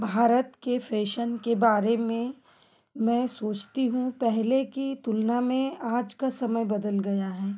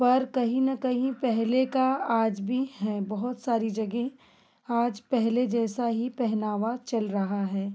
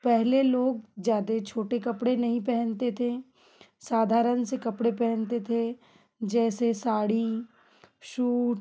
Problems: constant background noise